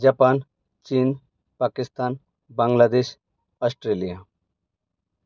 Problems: background sounds at intervals